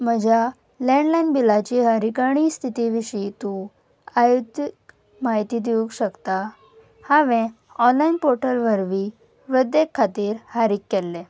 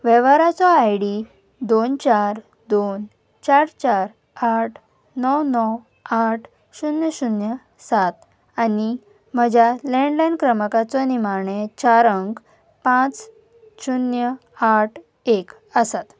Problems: background sounds at intervals, background conversations at intervals